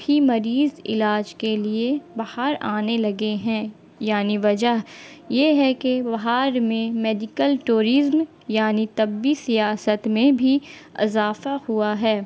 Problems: constant background noise